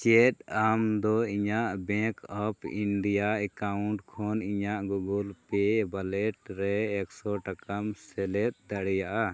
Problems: none marked